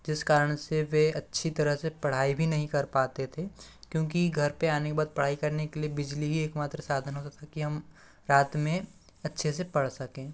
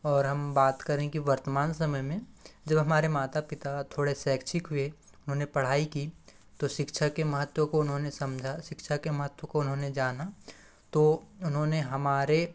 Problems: background sounds at intervals